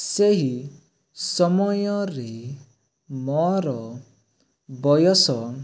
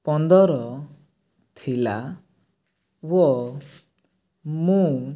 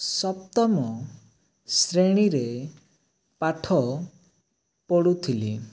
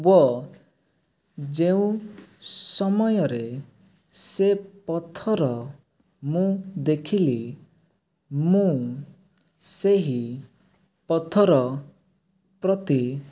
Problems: none marked